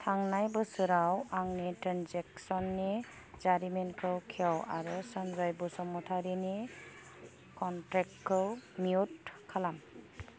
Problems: background sounds at intervals